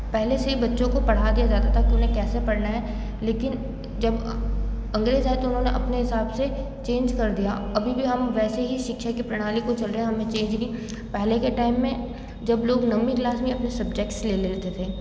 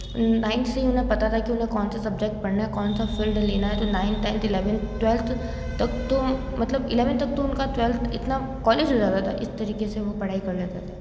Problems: constant background noise